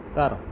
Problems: background sounds at intervals